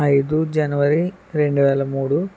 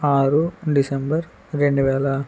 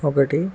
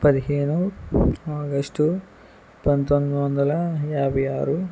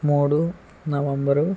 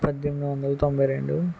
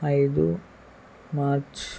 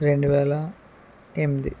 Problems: background sounds at intervals